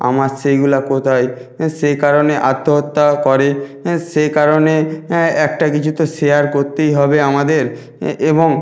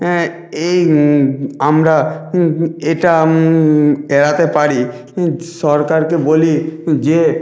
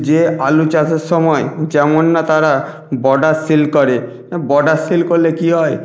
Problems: background sounds at intervals